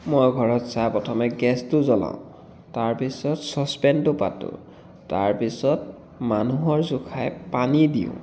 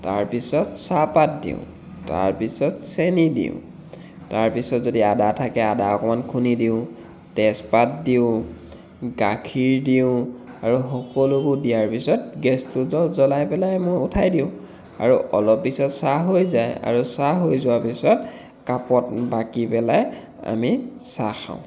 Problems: background sounds at intervals